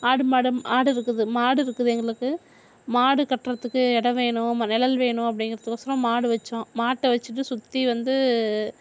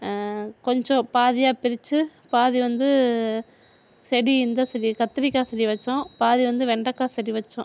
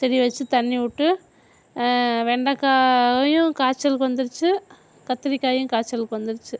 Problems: background sounds at intervals